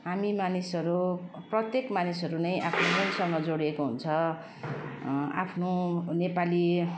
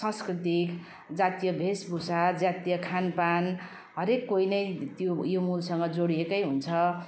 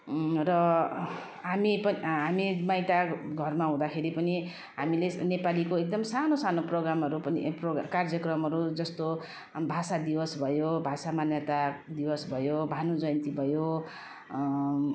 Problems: constant background noise